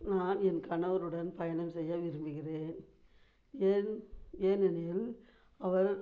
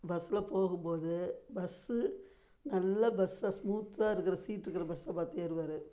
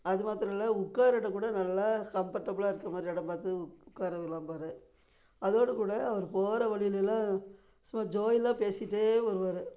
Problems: low volume